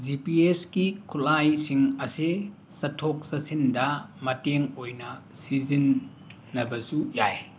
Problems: background sounds at intervals